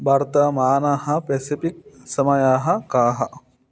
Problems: none marked